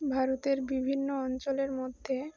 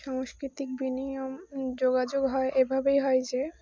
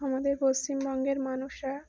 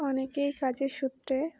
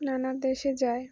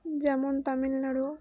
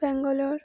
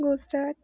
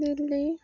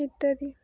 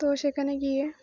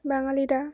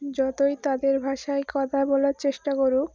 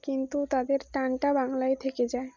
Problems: none marked